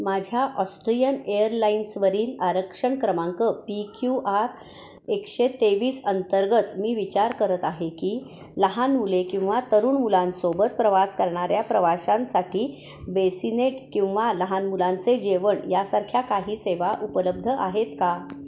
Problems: constant background noise